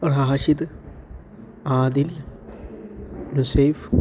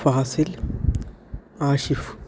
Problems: none marked